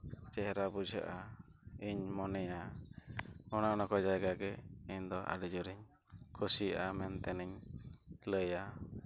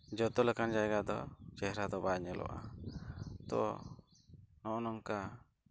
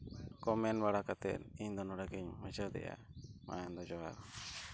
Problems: low volume